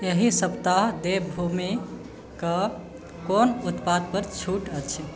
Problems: background sounds at intervals